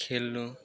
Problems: low volume